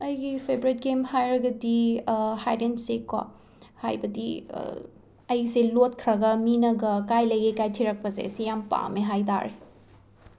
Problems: background sounds at intervals